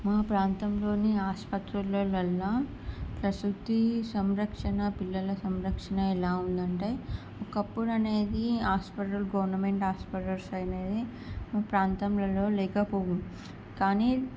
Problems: none marked